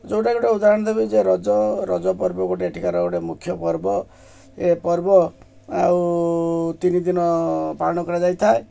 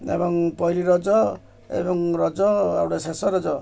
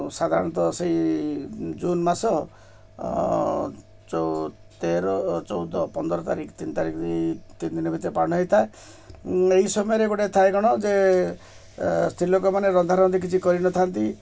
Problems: background sounds at intervals